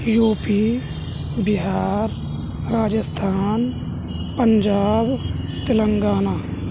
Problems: none marked